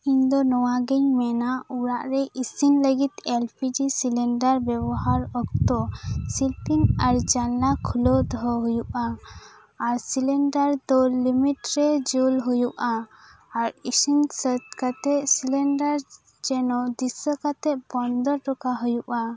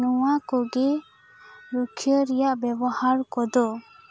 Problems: none marked